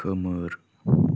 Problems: low volume